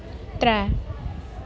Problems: constant background noise